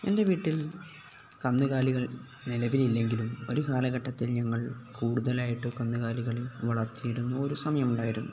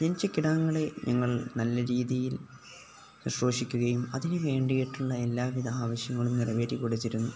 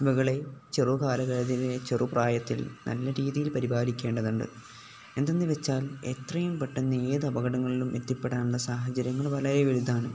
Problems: none marked